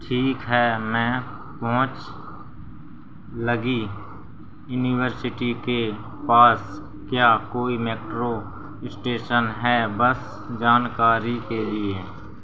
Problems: constant background noise